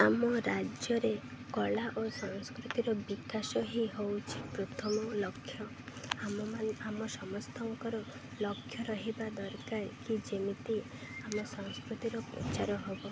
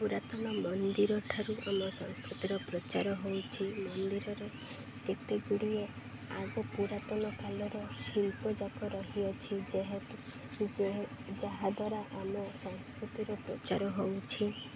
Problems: none marked